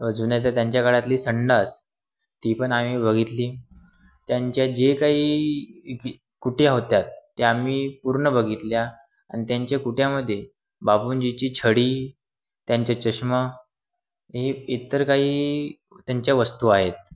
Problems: background sounds at intervals